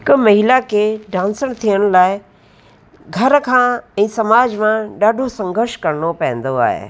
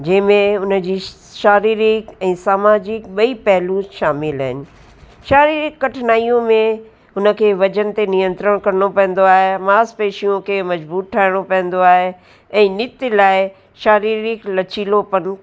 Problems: constant background noise, echo